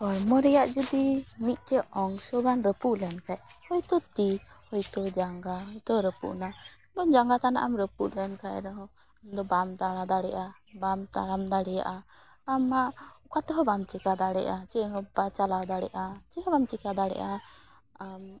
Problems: none marked